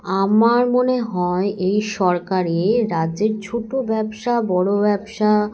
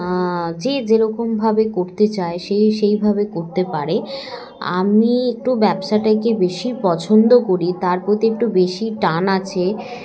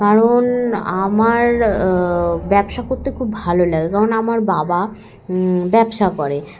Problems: constant background noise, continuous background conversations